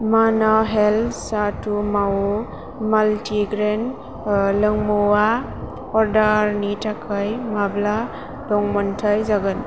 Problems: constant background noise